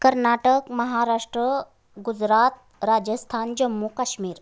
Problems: none marked